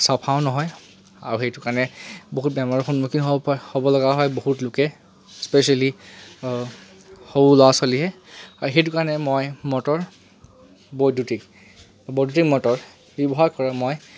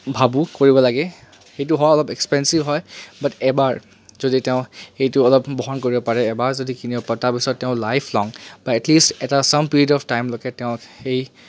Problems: constant background noise